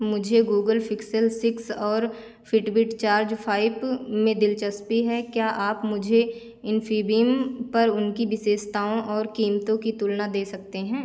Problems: constant background noise